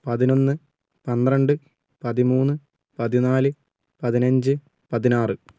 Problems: none marked